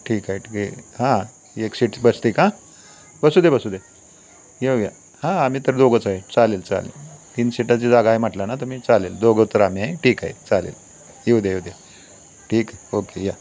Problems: constant background noise, continuous background conversations